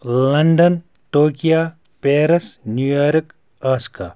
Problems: background sounds at intervals